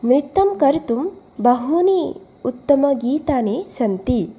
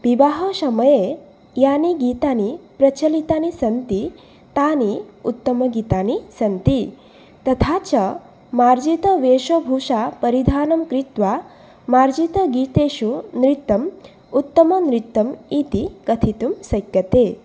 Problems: none marked